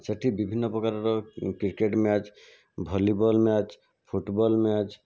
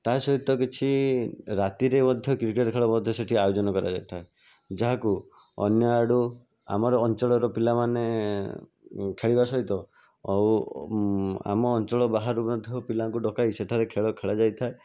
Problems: constant background noise